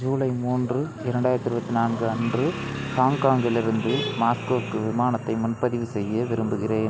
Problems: constant background noise